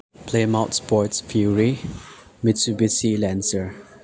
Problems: low volume